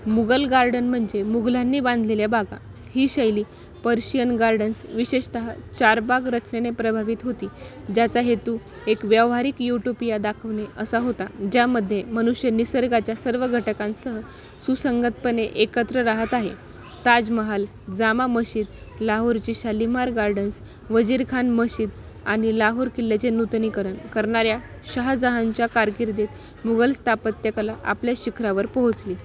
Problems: none marked